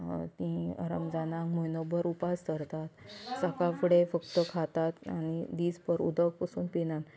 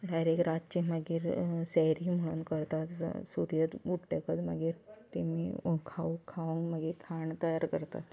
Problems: constant background noise